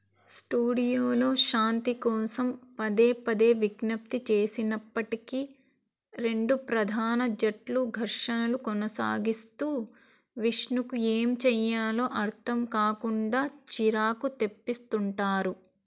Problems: none marked